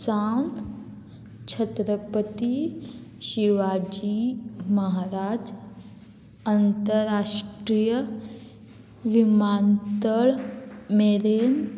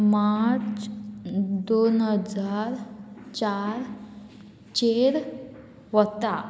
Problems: constant background noise